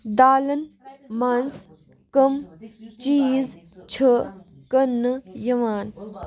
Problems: continuous background conversations